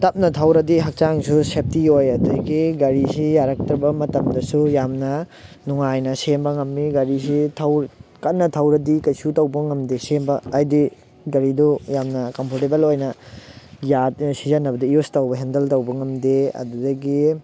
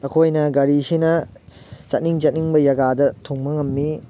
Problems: background sounds at intervals